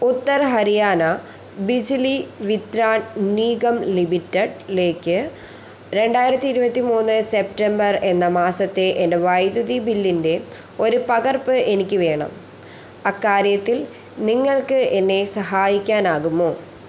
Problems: constant background noise